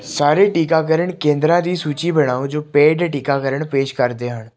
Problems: continuous background conversations